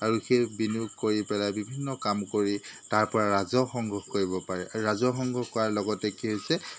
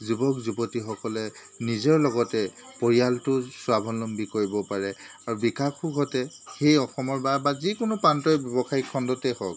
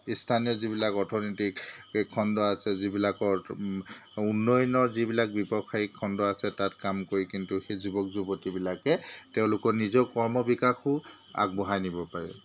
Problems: constant background noise